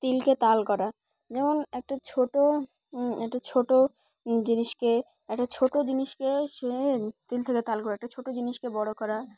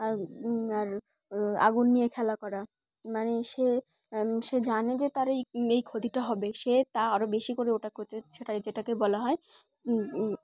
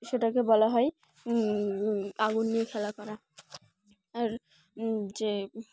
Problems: constant background noise, background conversations at intervals